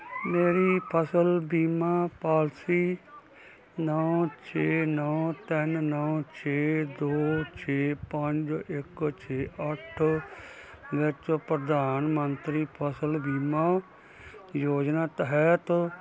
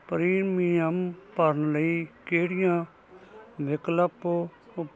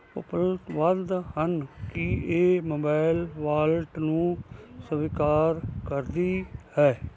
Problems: none marked